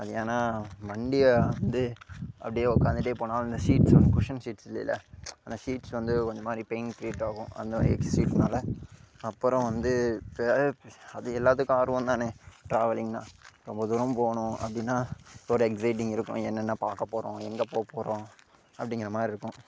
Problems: none marked